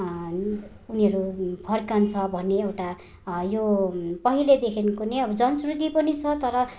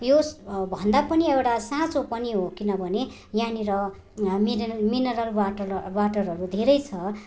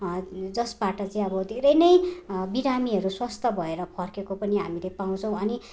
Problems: none marked